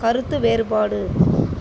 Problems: background sounds at intervals